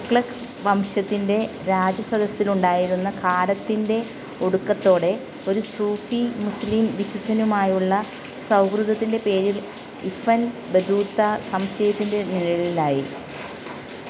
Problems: constant background noise